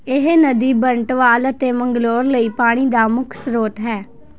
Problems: none marked